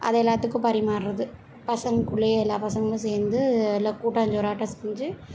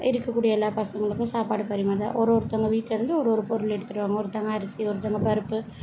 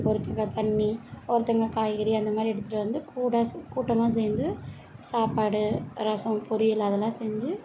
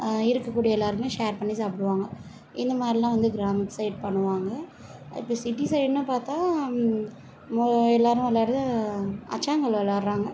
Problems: none marked